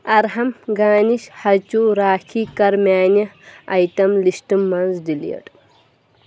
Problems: background sounds at intervals